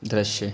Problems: none marked